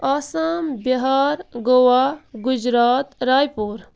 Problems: background sounds at intervals